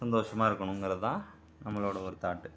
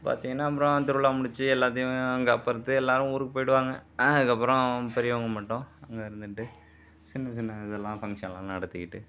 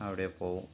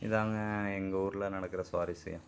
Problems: none marked